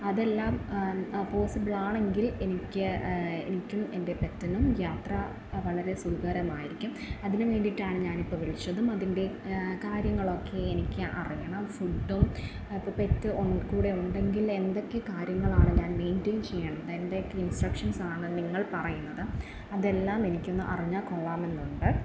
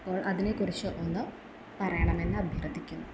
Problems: constant background noise